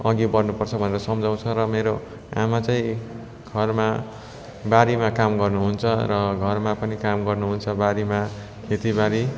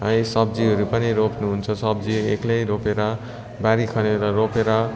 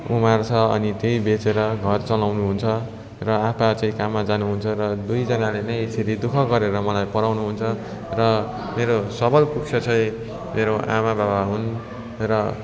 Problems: constant background noise